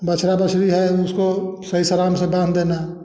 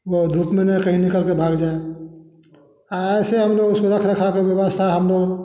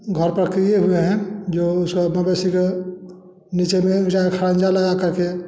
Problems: constant background noise, background conversations at intervals, echo